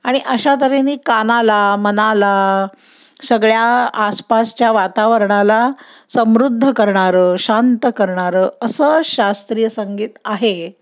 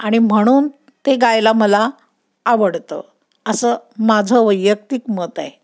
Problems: none marked